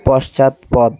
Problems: constant background noise